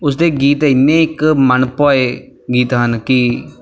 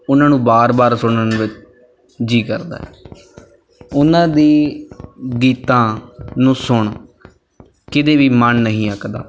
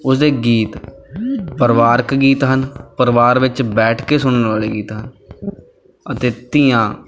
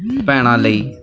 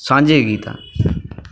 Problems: none marked